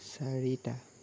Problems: low volume